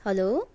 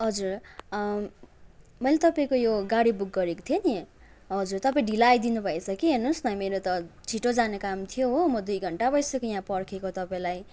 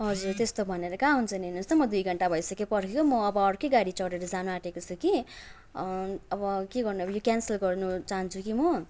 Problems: none marked